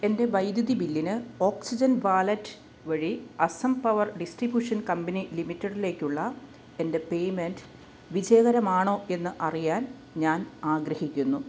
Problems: none marked